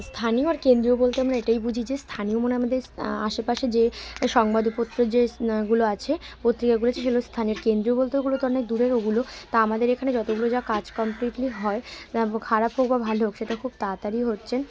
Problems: constant background noise, continuous background conversations